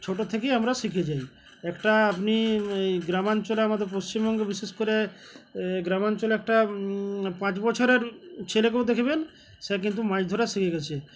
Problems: constant background noise, background conversations at intervals